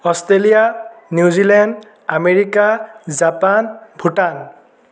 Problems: echo